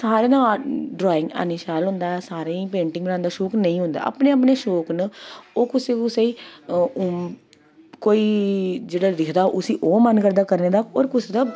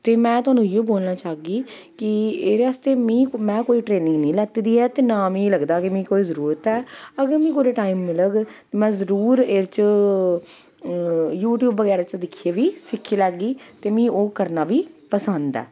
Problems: none marked